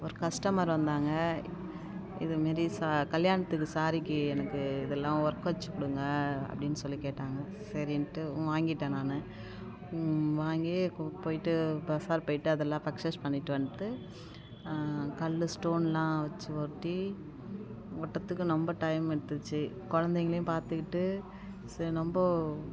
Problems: constant background noise